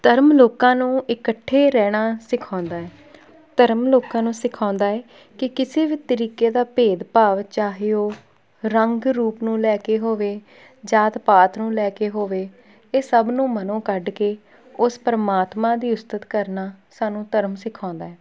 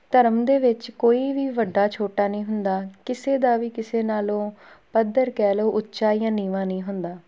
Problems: background sounds at intervals